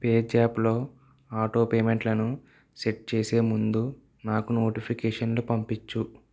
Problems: none marked